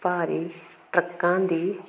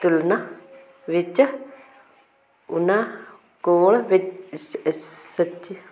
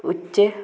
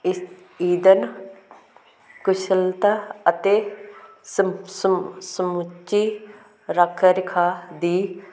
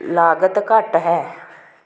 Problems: constant background noise